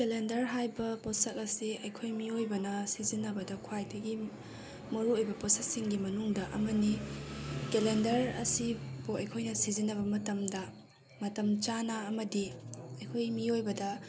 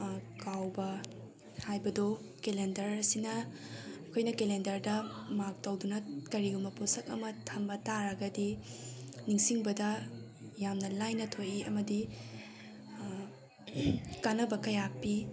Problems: none marked